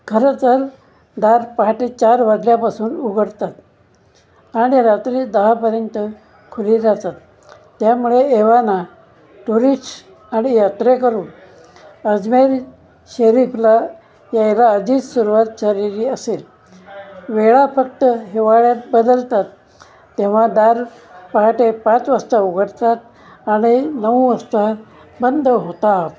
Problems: none marked